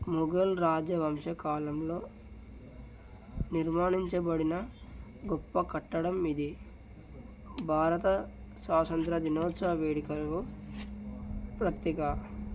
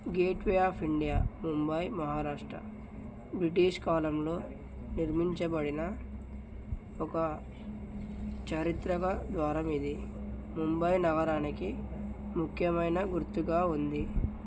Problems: none marked